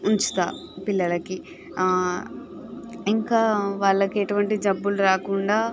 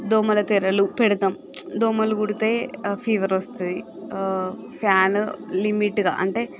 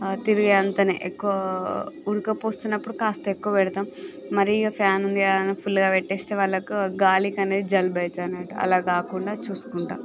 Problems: none marked